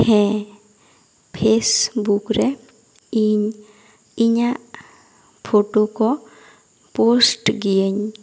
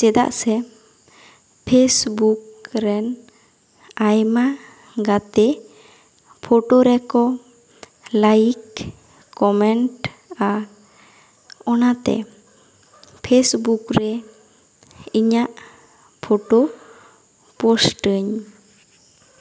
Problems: none marked